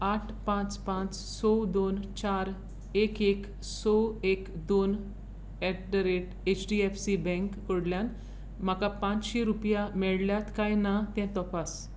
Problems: constant background noise